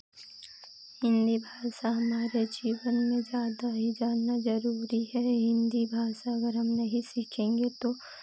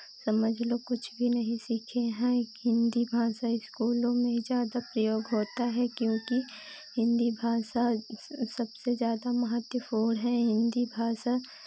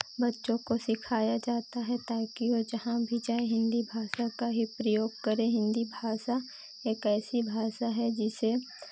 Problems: none marked